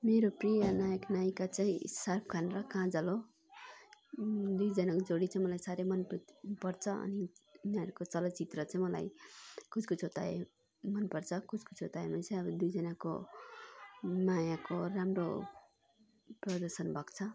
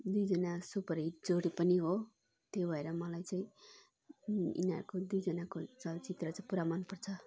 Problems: continuous background conversations